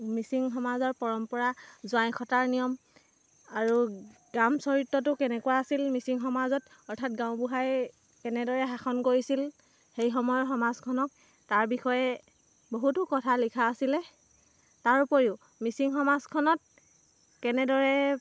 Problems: none marked